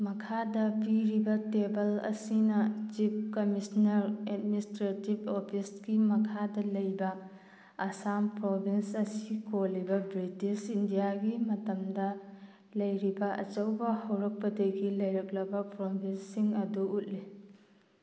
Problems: none marked